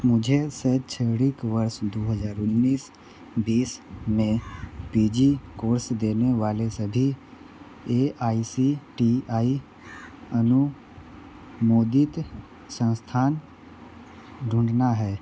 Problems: constant background noise, background conversations at intervals